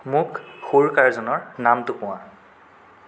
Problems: constant background noise